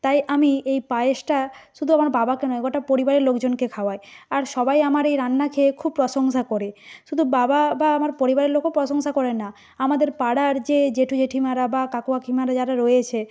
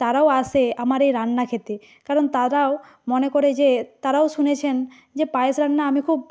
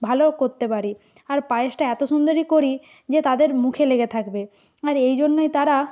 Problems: background sounds at intervals